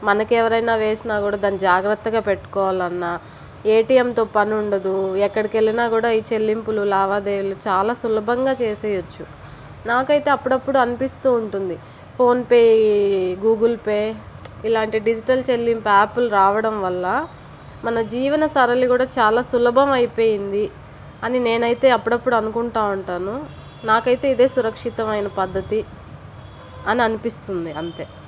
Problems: constant background noise